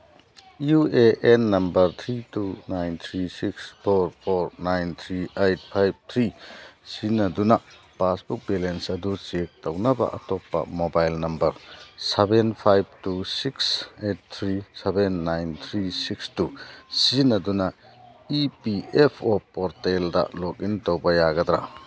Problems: background sounds at intervals